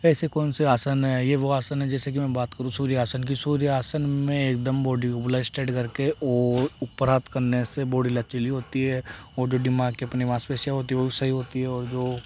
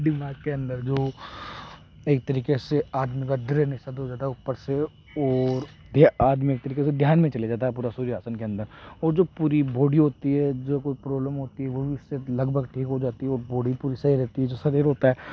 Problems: background sounds at intervals